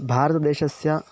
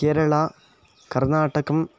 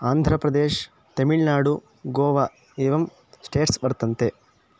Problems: none marked